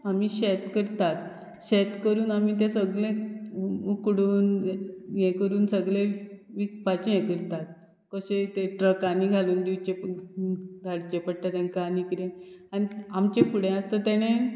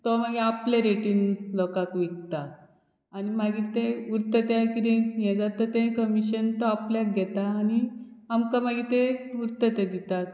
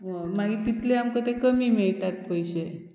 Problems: background sounds at intervals